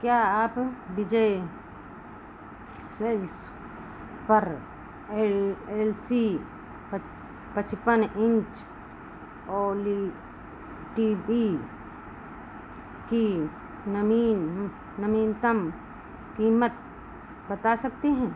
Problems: constant background noise